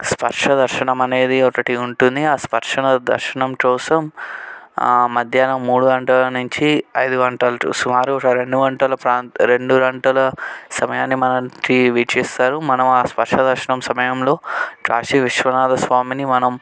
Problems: none marked